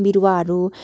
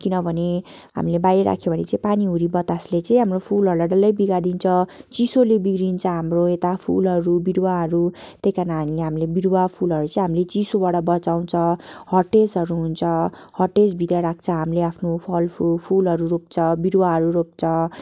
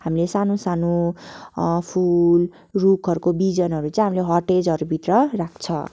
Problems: none marked